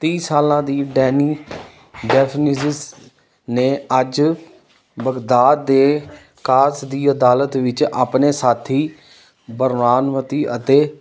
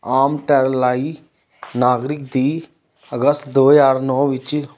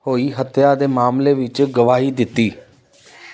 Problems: constant background noise